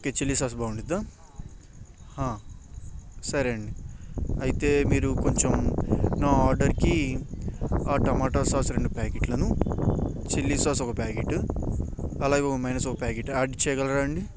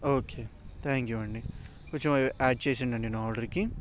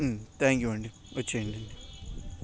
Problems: background sounds at intervals